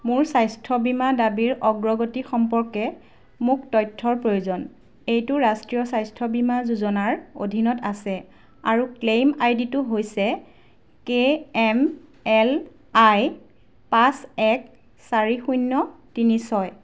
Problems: none marked